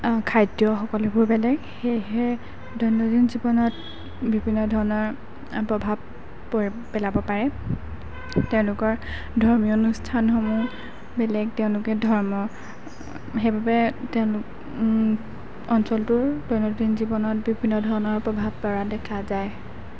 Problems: background sounds at intervals